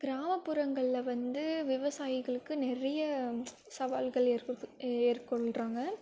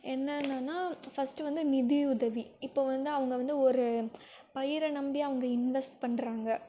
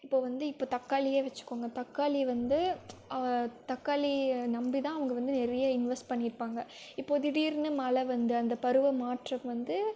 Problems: none marked